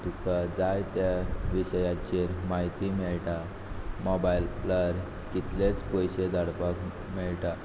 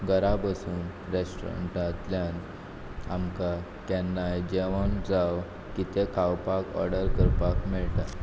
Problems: background sounds at intervals